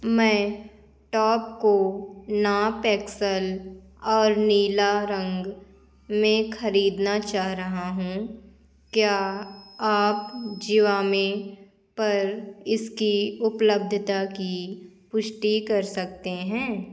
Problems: none marked